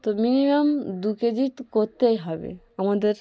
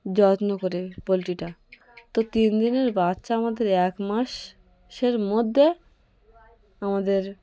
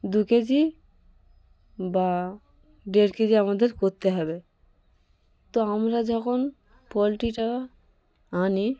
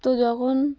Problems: constant background noise, continuous background conversations